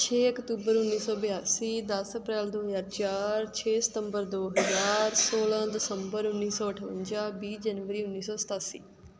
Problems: background sounds at intervals